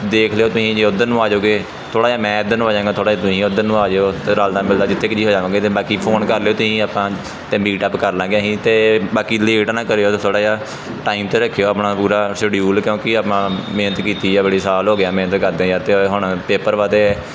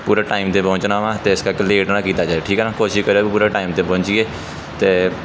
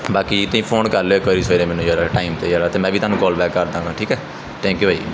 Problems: background sounds at intervals, background conversations at intervals